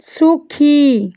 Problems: none marked